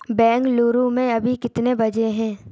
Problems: background sounds at intervals